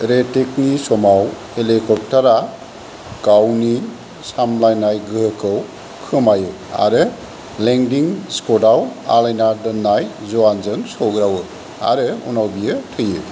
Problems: none marked